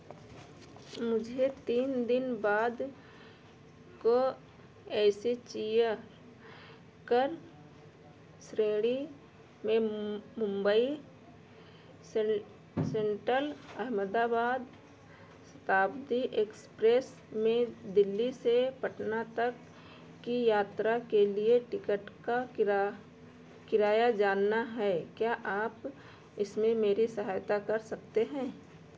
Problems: background sounds at intervals